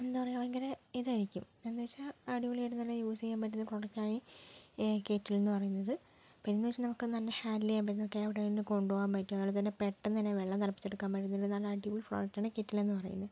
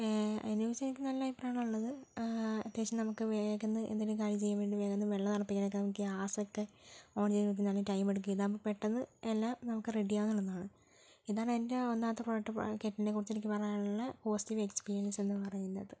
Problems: low volume